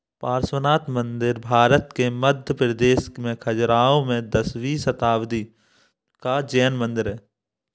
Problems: background sounds at intervals